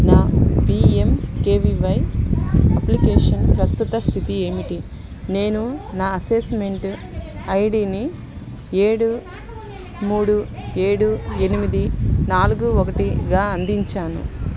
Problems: constant background noise, continuous background conversations